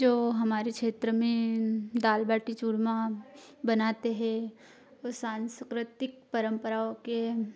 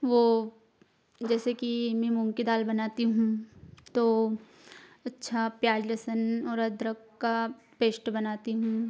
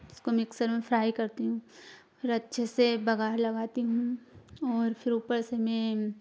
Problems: constant background noise